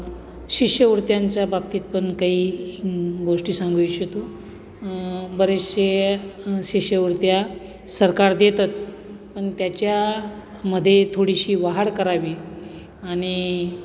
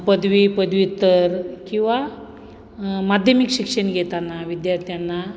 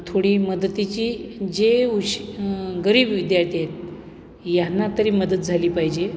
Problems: none marked